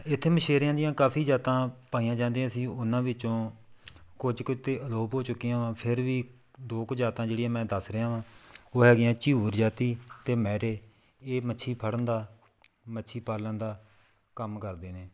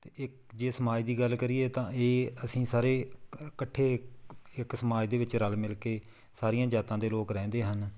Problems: background sounds at intervals